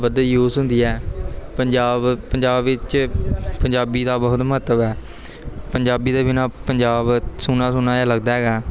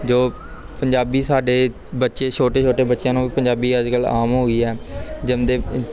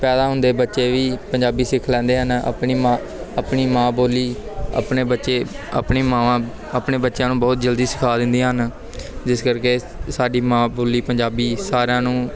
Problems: background sounds at intervals